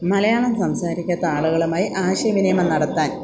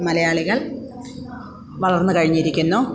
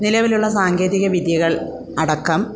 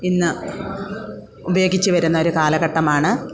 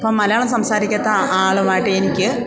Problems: none marked